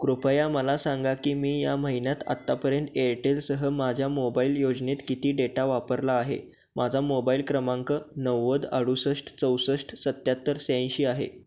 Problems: none marked